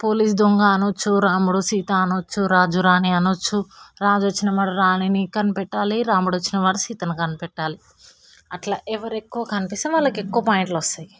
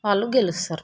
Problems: none marked